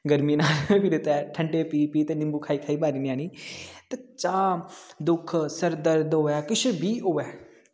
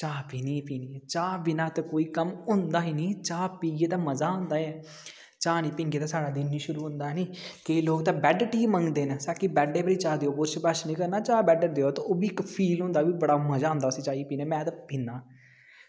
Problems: background sounds at intervals, echo